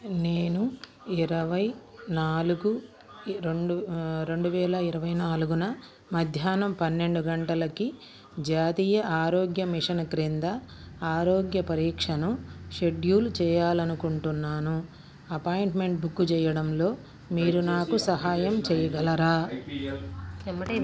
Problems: background conversations at intervals